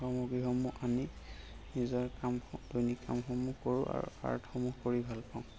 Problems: constant background noise, background conversations at intervals